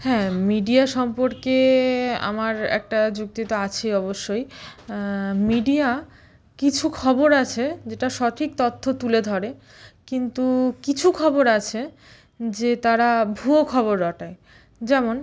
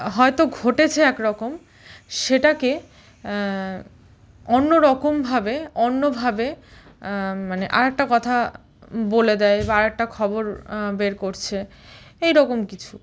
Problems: none marked